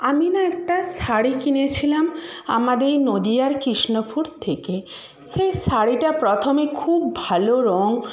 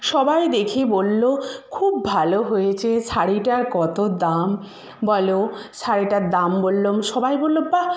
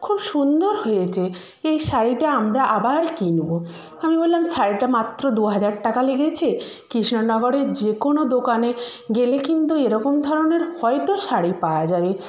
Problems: background conversations at intervals